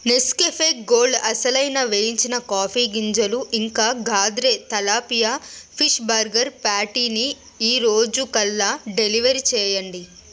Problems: constant background noise